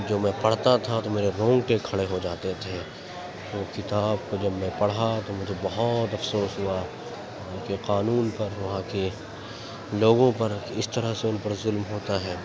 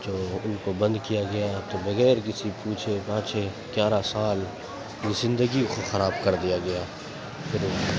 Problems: constant background noise